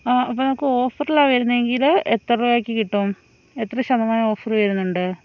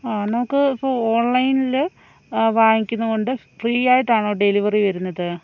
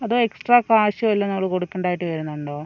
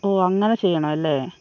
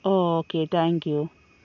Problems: none marked